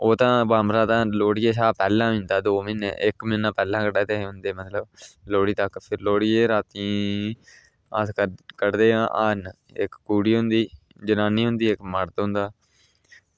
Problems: none marked